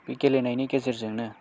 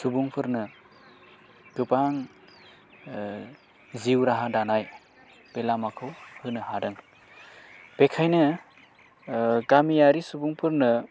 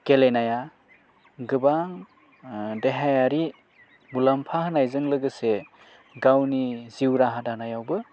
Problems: low volume